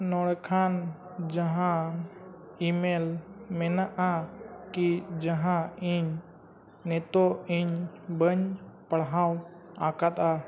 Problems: none marked